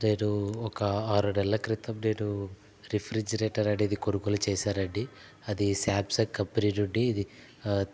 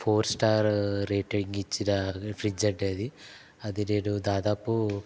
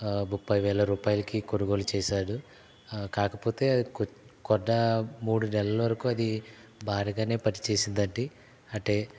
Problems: none marked